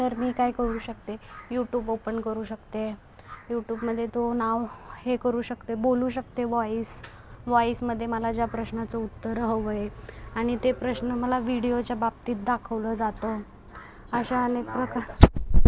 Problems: constant background noise, background conversations at intervals